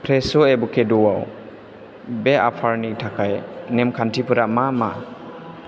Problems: constant background noise